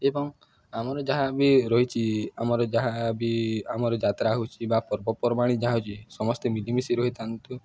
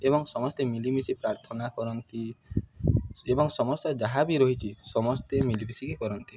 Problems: none marked